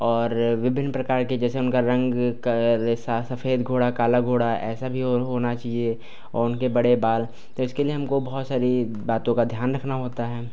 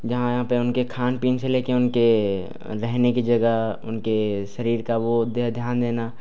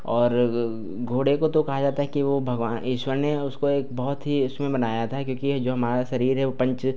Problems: none marked